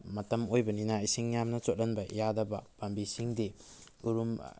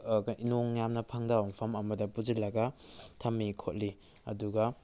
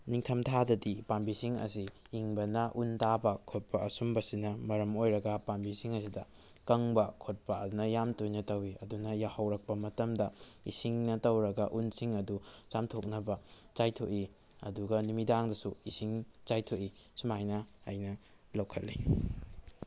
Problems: none marked